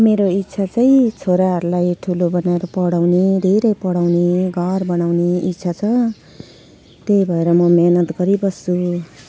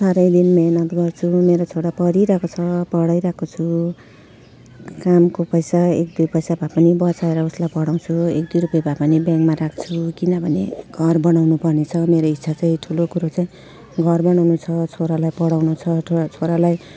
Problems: none marked